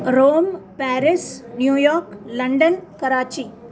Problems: continuous background conversations